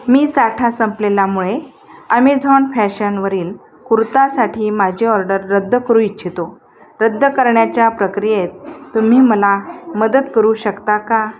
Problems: constant background noise, background conversations at intervals